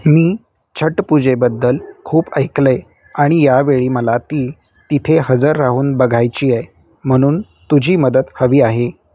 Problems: background sounds at intervals